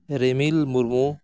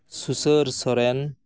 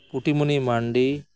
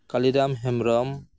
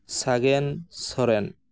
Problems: background sounds at intervals